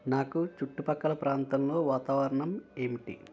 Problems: constant background noise, continuous background conversations